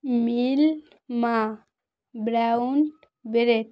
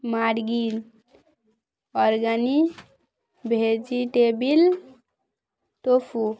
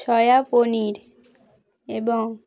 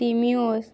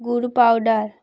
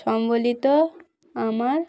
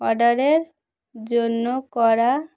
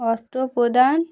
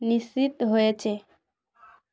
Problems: background sounds at intervals, continuous background conversations